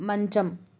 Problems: none marked